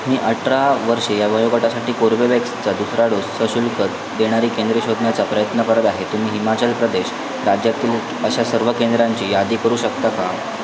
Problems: constant background noise, continuous background conversations